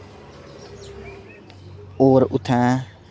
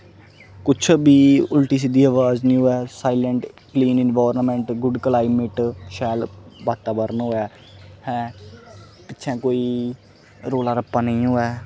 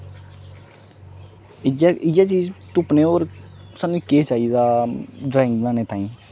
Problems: constant background noise